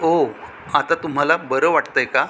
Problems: none marked